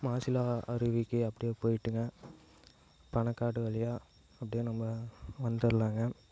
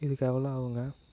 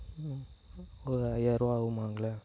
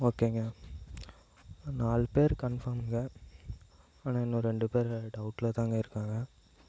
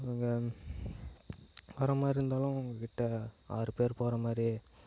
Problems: low volume